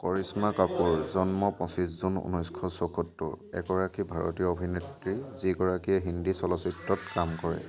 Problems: none marked